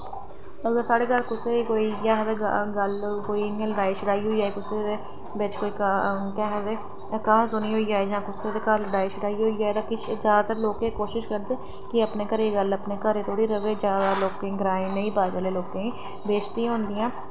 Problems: constant background noise